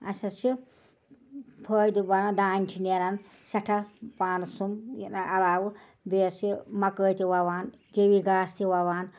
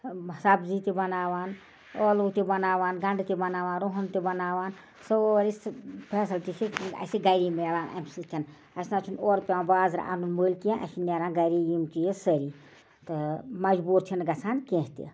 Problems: none marked